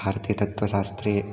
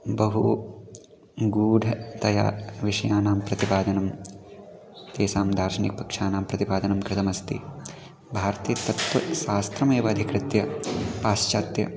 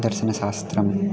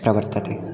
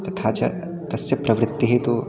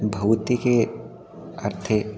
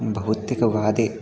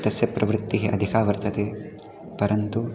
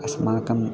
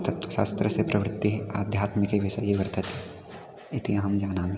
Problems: continuous background conversations